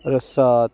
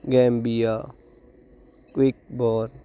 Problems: none marked